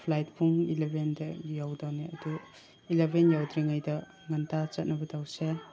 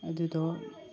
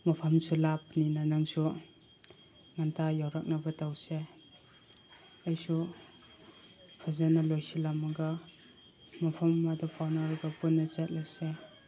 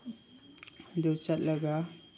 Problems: constant background noise, background conversations at intervals